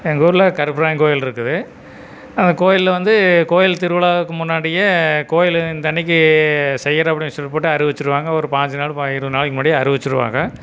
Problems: none marked